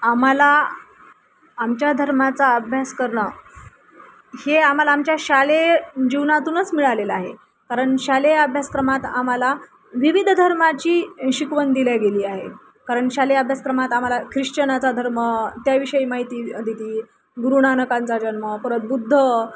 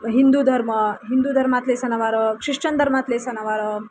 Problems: constant background noise